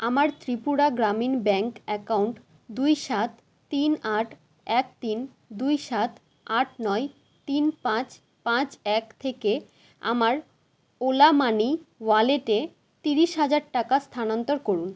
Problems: none marked